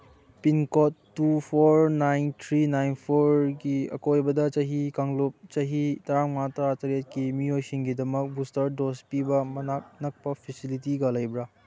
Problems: background sounds at intervals